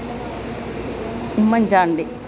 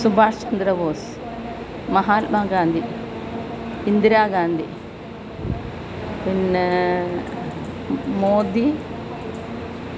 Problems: constant background noise